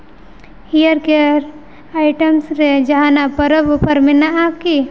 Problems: background sounds at intervals, echo